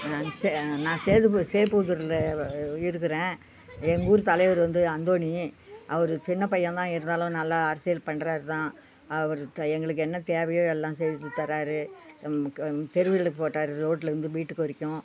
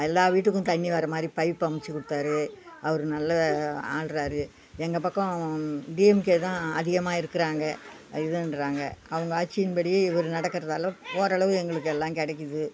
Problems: background conversations at intervals